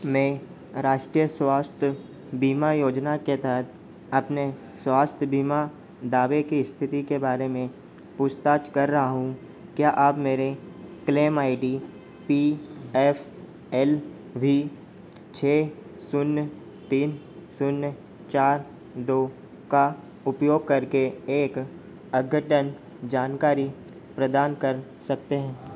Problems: constant background noise